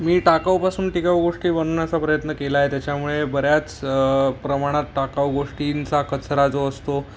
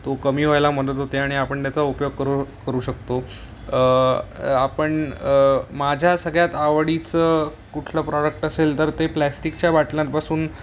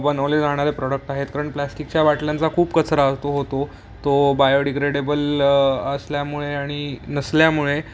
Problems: none marked